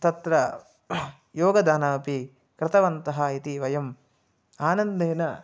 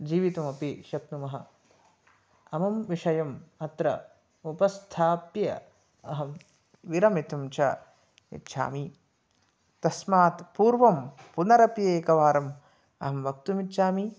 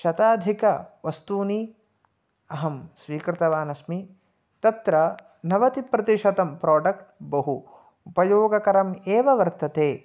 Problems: none marked